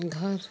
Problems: constant background noise